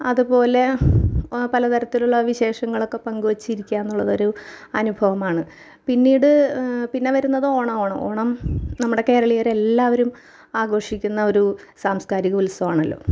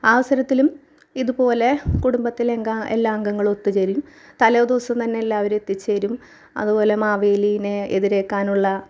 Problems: none marked